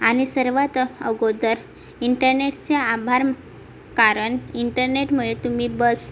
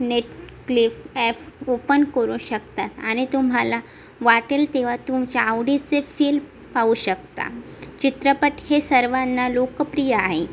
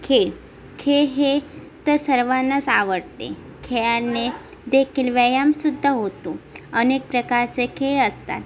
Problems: constant background noise, background conversations at intervals